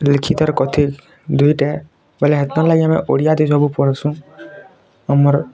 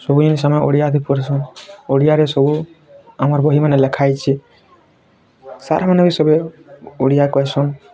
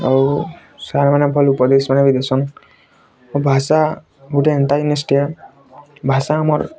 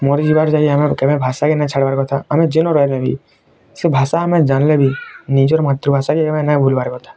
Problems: constant background noise, continuous background conversations